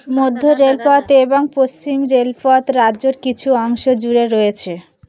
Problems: background sounds at intervals